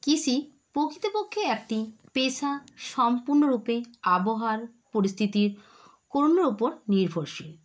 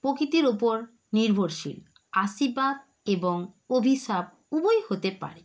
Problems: none marked